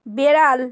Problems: none marked